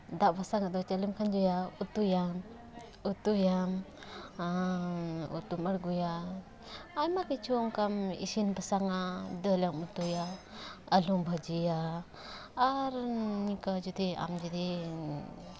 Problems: none marked